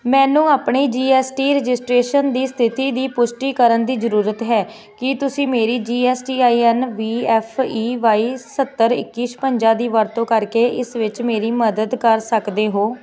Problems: constant background noise, background conversations at intervals